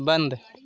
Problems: background conversations at intervals